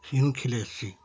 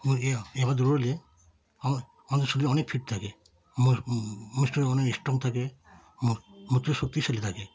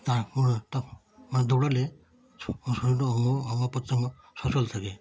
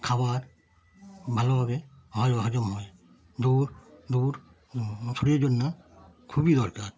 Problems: background conversations at intervals